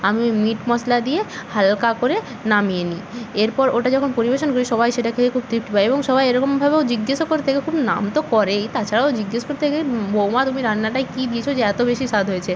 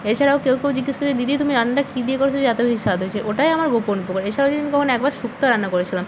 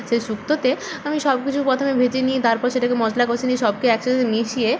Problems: none marked